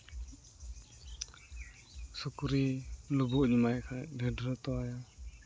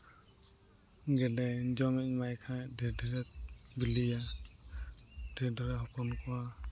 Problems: constant background noise